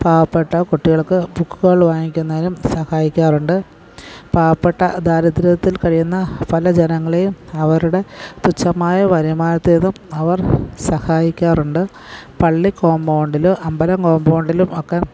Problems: background sounds at intervals, background conversations at intervals